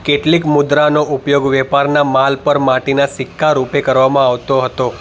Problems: constant background noise